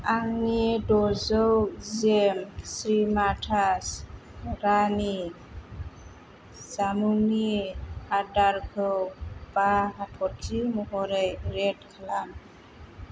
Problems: low volume